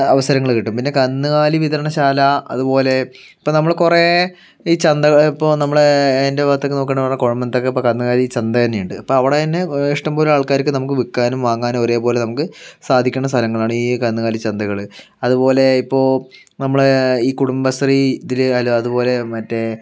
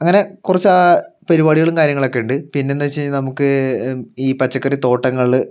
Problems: none marked